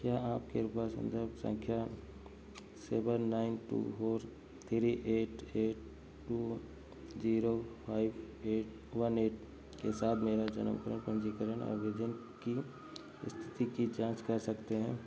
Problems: background sounds at intervals